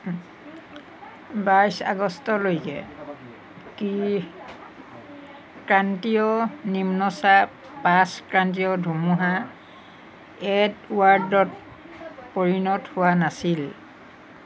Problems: none marked